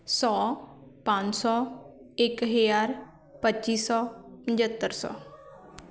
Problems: continuous background conversations